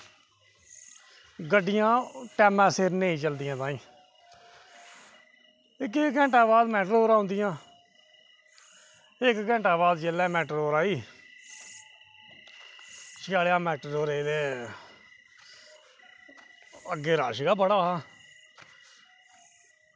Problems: none marked